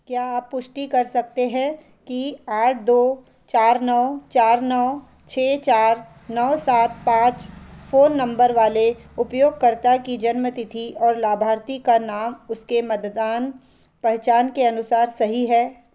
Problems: none marked